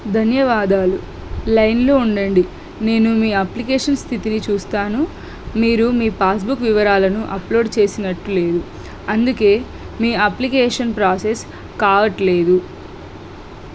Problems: constant background noise